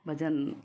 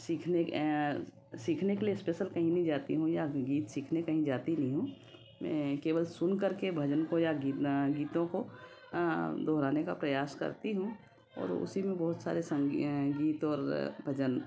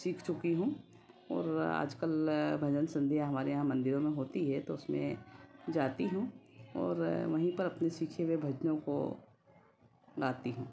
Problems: constant background noise